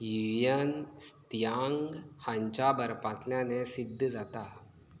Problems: background sounds at intervals